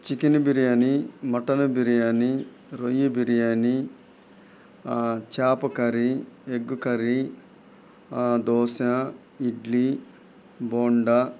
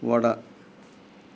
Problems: background sounds at intervals